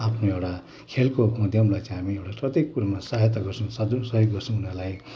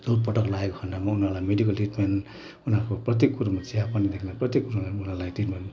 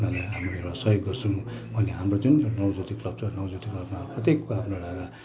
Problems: none marked